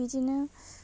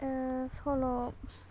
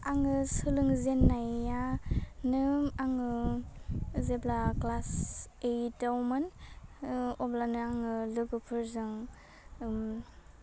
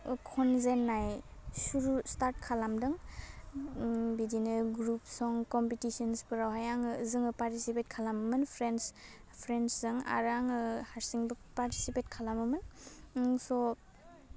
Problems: low volume